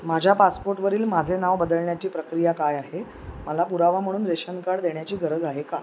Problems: none marked